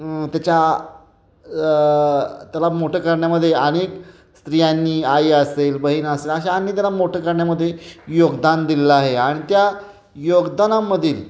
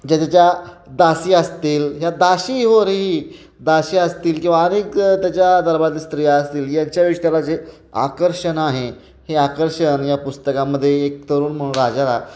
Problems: constant background noise, background conversations at intervals, echo